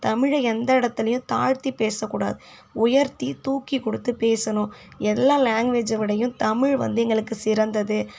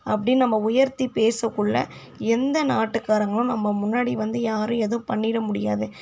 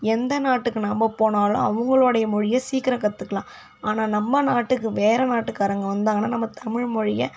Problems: none marked